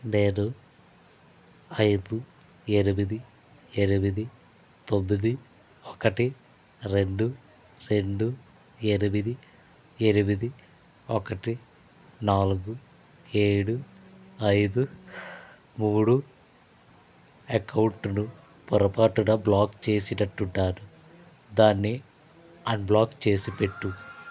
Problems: constant background noise